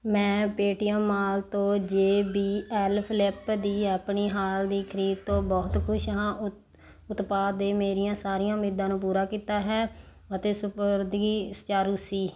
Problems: background sounds at intervals